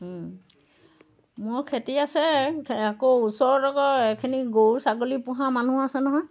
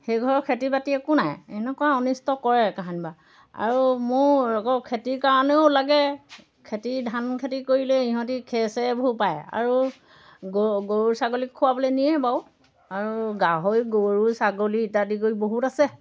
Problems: background sounds at intervals